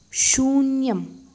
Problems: none marked